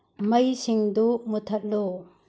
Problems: low volume